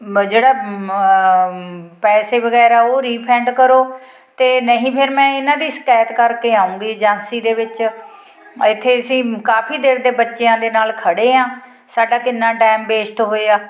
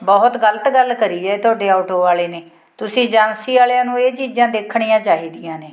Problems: continuous background conversations